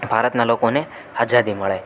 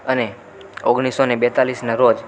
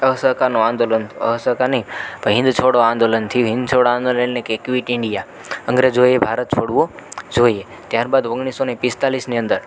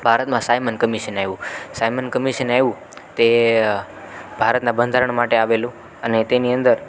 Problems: none marked